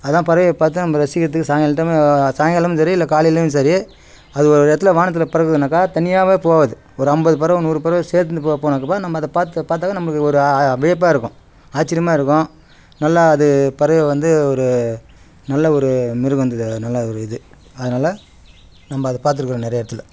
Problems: background sounds at intervals